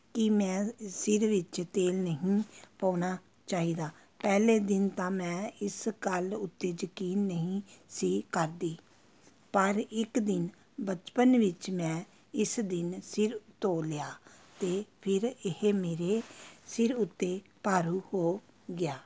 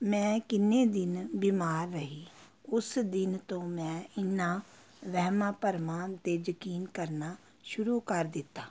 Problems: constant background noise